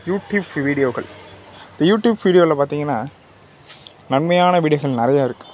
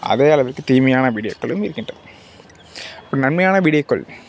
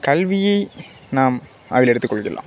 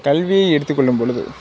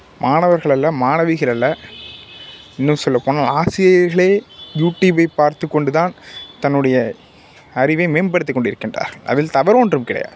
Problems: background sounds at intervals